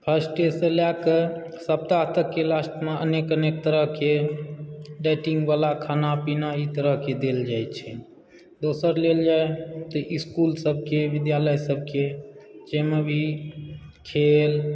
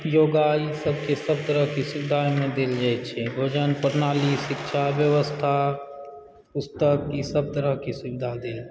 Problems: background sounds at intervals